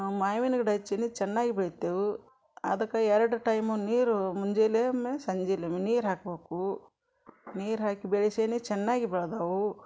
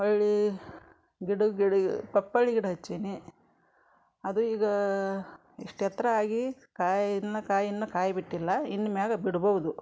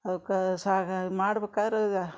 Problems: background conversations at intervals